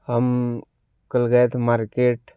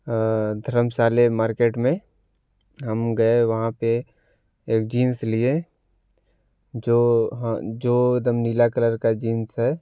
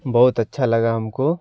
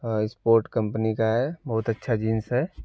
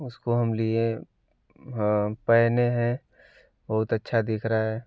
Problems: none marked